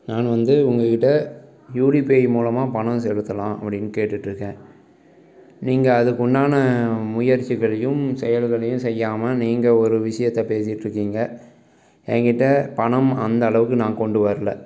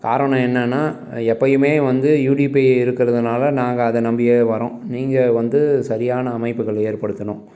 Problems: none marked